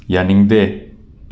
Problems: none marked